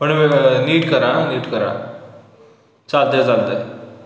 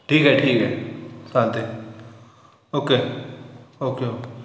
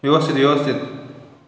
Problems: constant background noise, echo